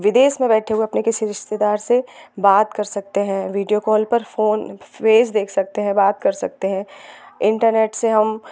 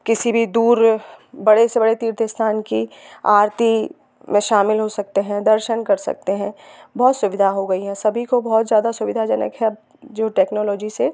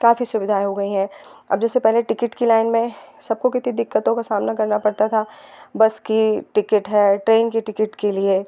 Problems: constant background noise